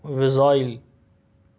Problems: none marked